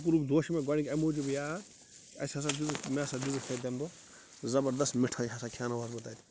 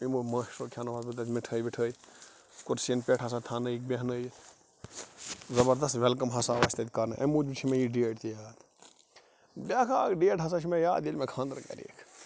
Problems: constant background noise